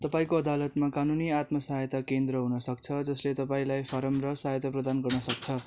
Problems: constant background noise